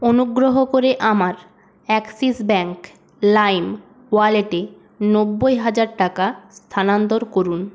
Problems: constant background noise